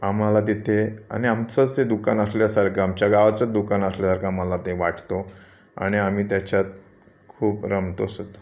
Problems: constant background noise, background conversations at intervals